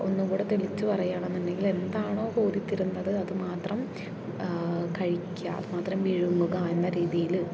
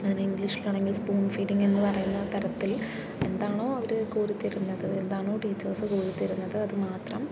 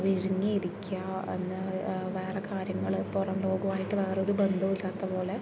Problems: constant background noise, low volume